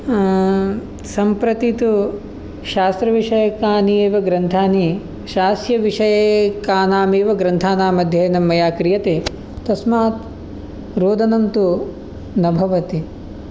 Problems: none marked